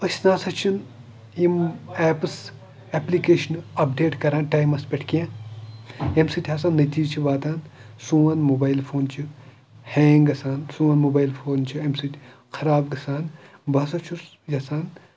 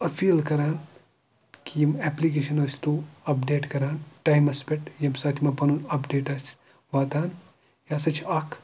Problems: background sounds at intervals, background conversations at intervals